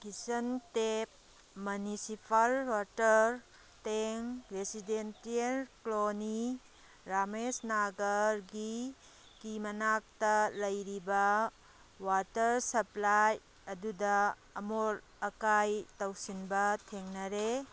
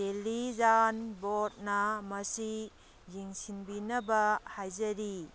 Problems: background sounds at intervals